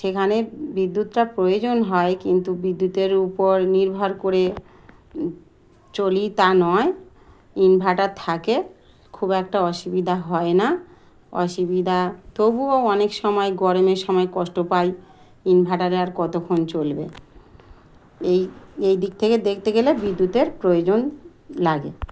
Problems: background sounds at intervals, background conversations at intervals